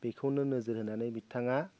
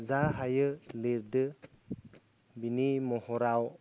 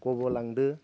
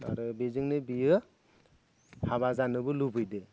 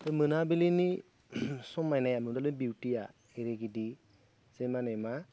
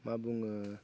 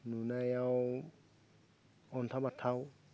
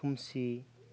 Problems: none marked